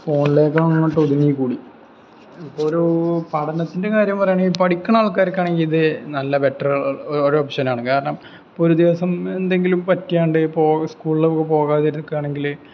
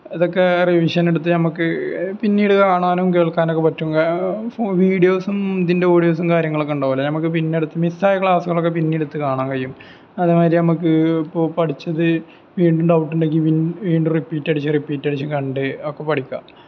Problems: background sounds at intervals